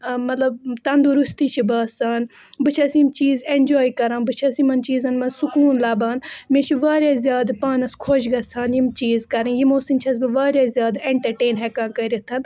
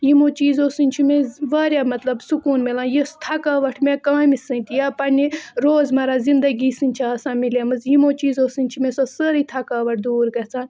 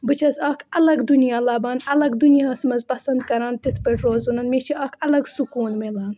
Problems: constant background noise